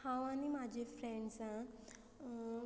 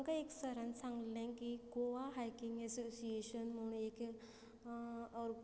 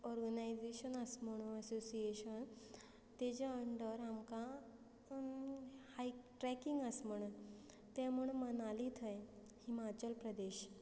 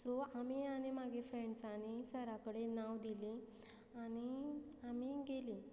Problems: constant background noise